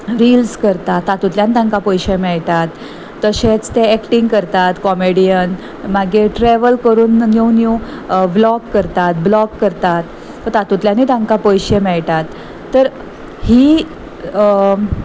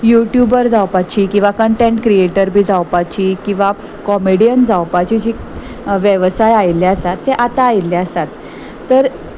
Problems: none marked